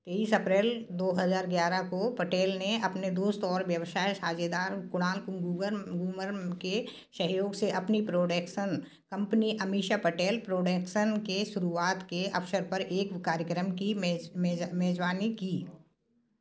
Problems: constant background noise, background conversations at intervals